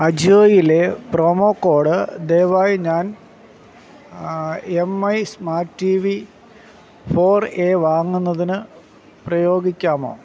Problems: constant background noise